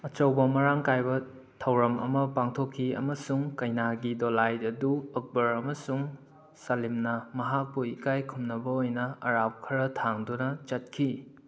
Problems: none marked